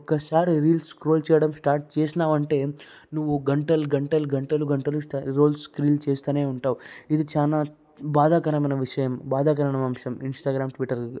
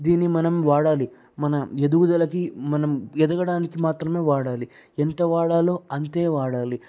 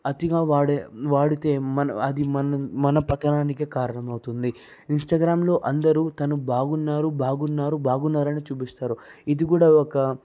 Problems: none marked